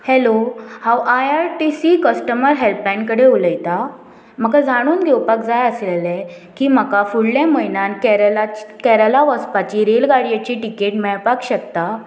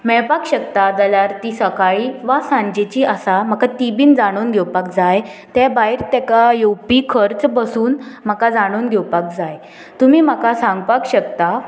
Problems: none marked